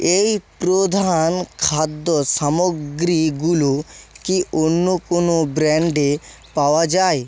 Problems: background conversations at intervals